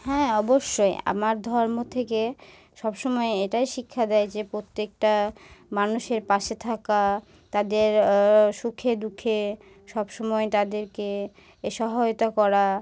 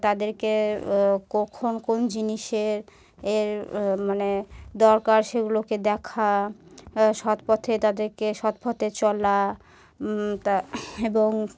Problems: background sounds at intervals